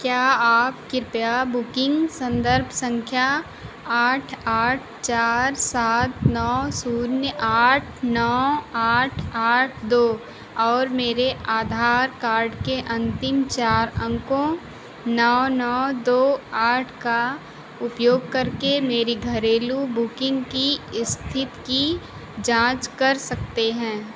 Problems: constant background noise